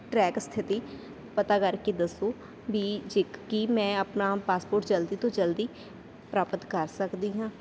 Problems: constant background noise